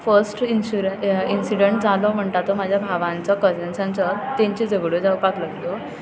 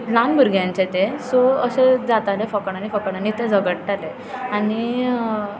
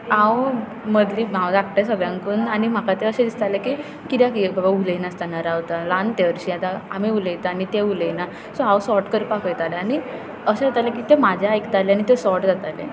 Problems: constant background noise